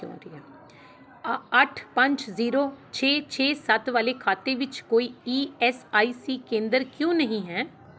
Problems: background sounds at intervals